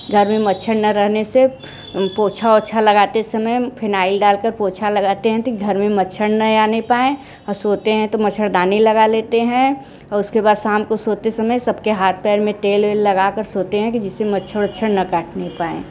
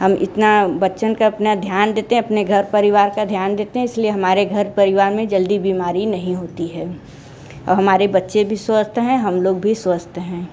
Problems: none marked